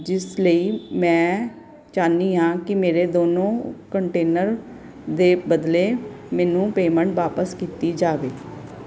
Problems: none marked